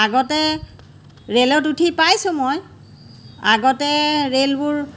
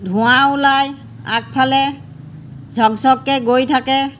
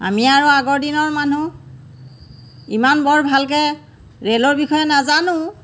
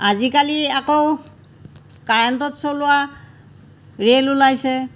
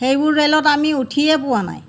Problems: none marked